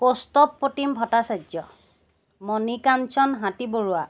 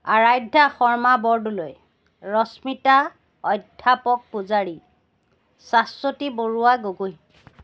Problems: constant background noise